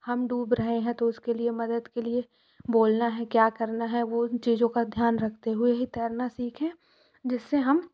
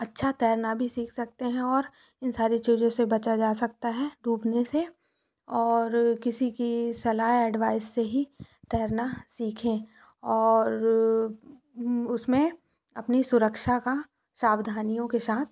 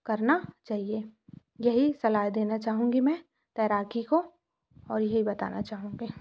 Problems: background sounds at intervals